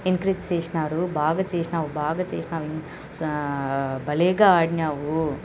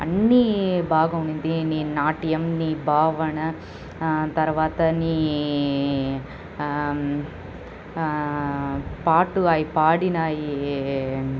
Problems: constant background noise